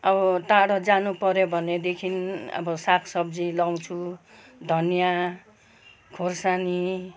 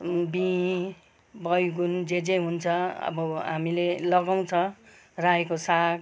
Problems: background conversations at intervals